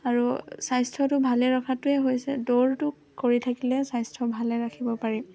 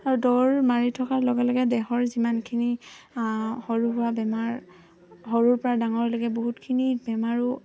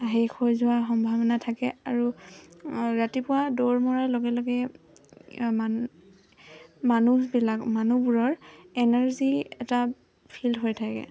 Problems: constant background noise